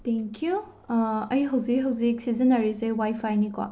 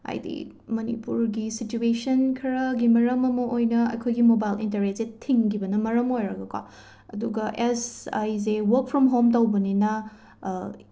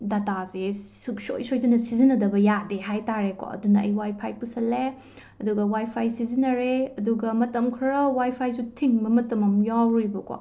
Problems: background sounds at intervals